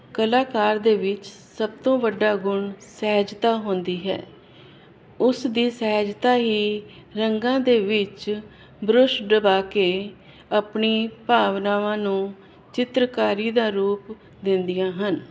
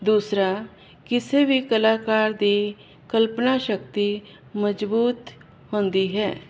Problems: constant background noise